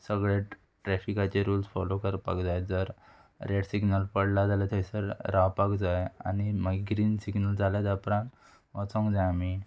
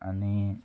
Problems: constant background noise